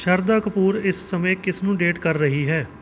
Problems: background sounds at intervals